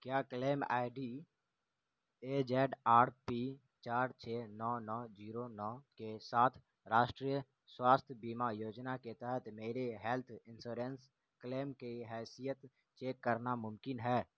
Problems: constant background noise, low volume